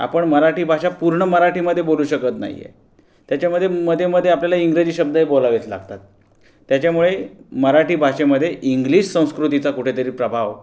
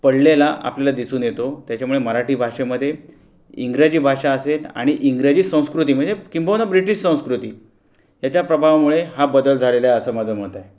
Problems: background sounds at intervals